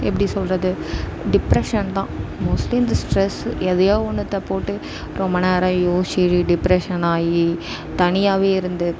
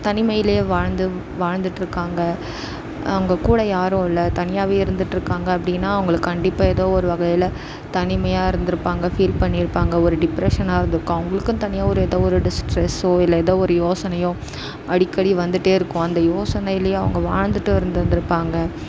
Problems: constant background noise